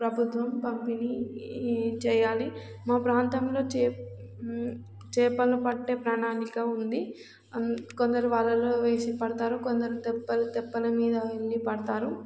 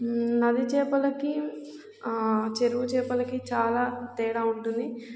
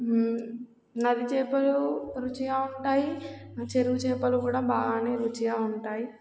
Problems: background sounds at intervals